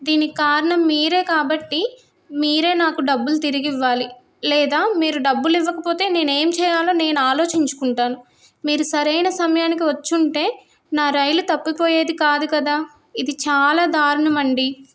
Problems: none marked